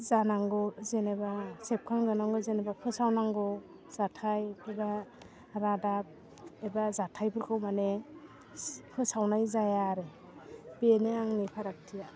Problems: constant background noise